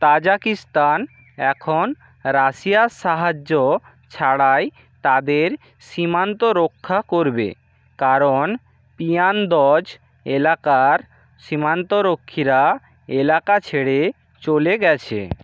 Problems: constant background noise